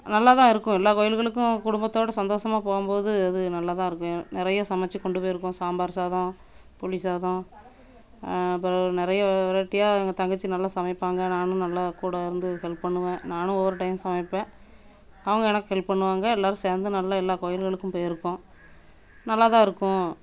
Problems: constant background noise